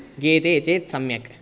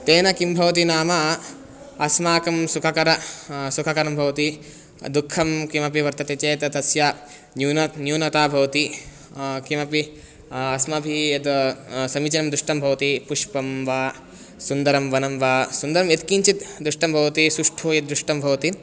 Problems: none marked